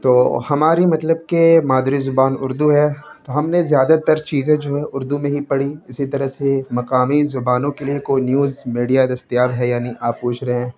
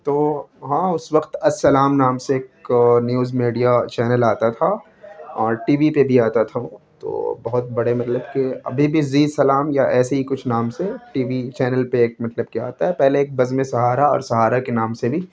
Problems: background sounds at intervals